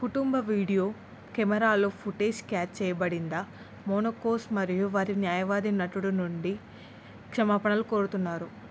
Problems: none marked